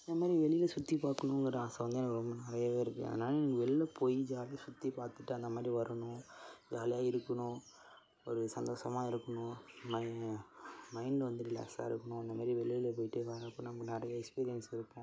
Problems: constant background noise